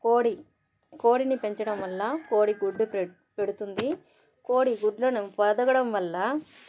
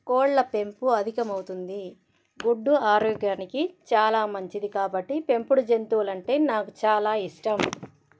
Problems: none marked